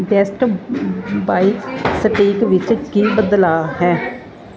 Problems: constant background noise